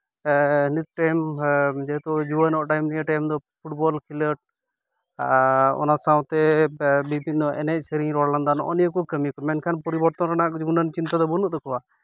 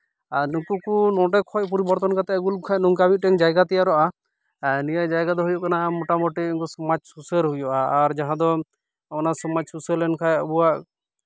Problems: background sounds at intervals